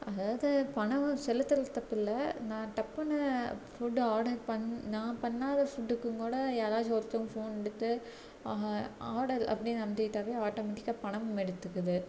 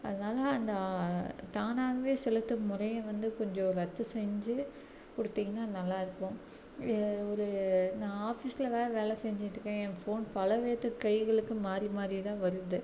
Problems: none marked